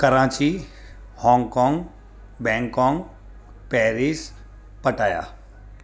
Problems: constant background noise